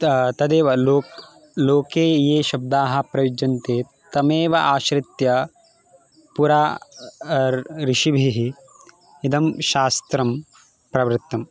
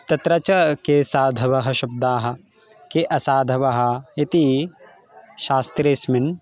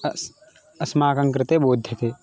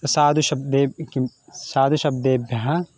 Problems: constant background noise, background conversations at intervals